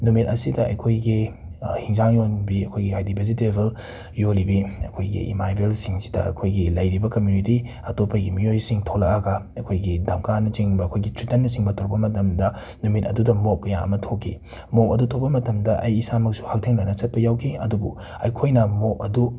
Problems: background sounds at intervals